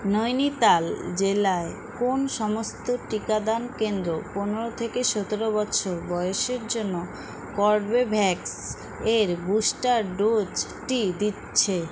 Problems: constant background noise